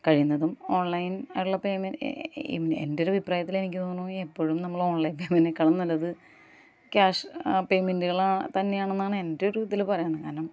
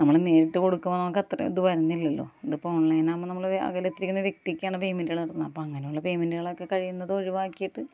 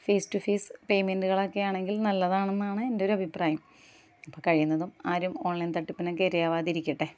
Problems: none marked